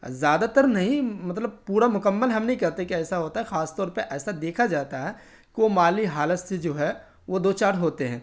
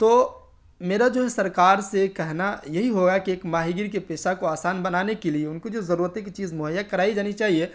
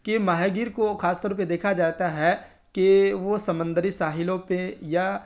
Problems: none marked